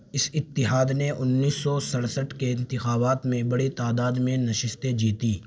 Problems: constant background noise